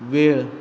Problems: background sounds at intervals